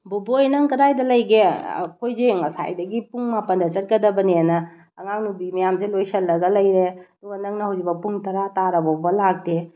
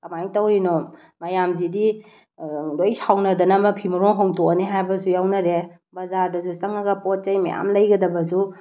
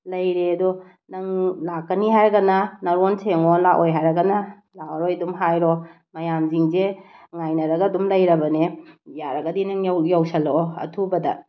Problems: none marked